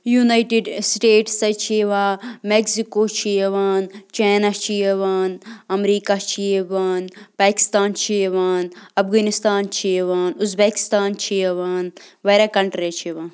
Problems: constant background noise